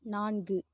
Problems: none marked